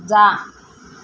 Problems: background sounds at intervals